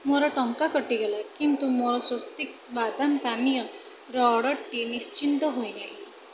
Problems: constant background noise